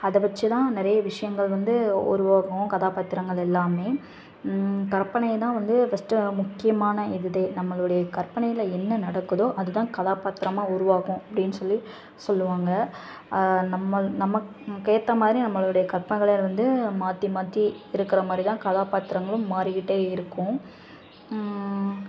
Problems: constant background noise, background conversations at intervals